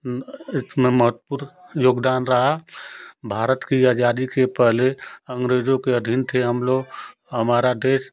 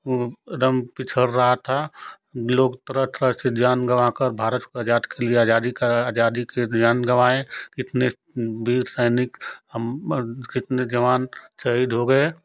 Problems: none marked